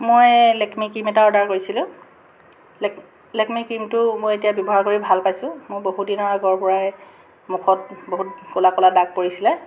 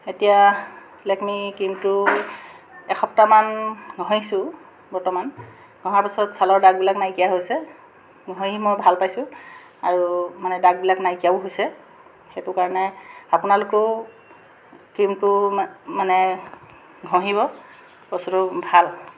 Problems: constant background noise